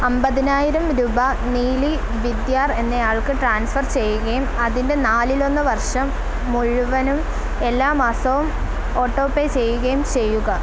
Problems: none marked